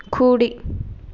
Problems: none marked